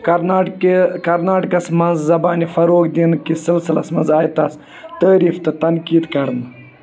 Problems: constant background noise, continuous background conversations